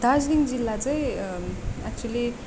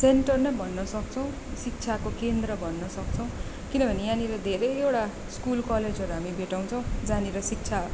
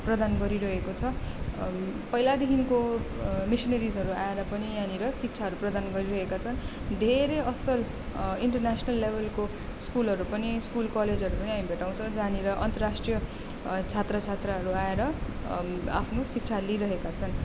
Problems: background conversations at intervals